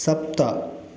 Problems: none marked